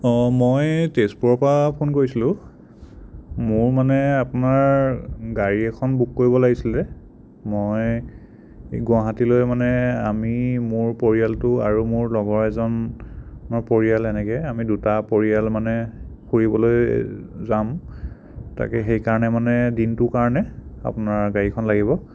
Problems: none marked